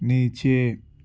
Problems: background sounds at intervals, low volume